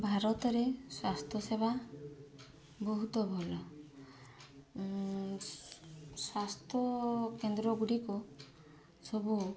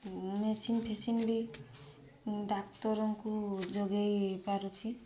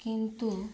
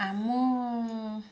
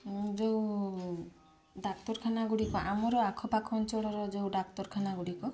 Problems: constant background noise, continuous background conversations